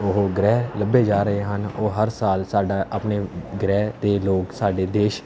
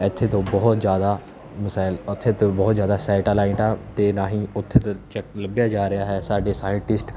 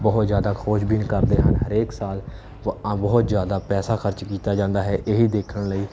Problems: constant background noise